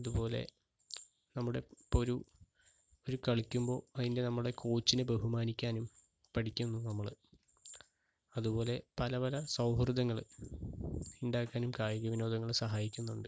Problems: background sounds at intervals, low volume